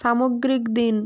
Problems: constant background noise